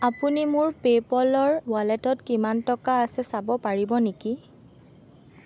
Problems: constant background noise